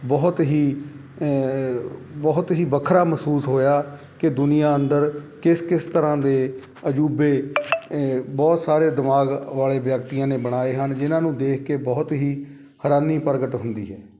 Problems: constant background noise